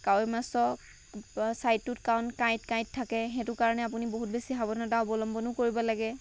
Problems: none marked